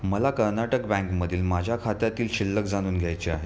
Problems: background sounds at intervals